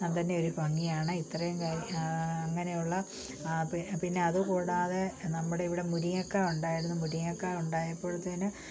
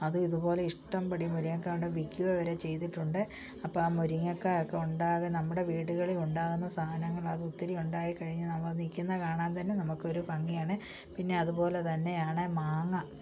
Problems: low volume